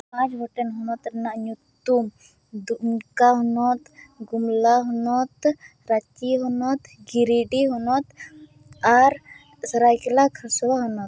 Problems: none marked